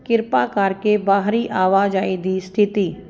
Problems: constant background noise